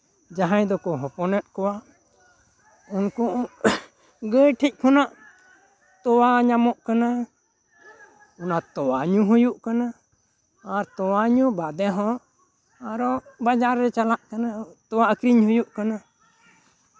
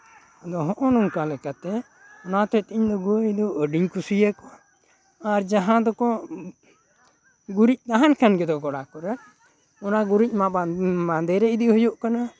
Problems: background conversations at intervals